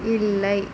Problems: constant background noise